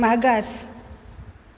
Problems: background sounds at intervals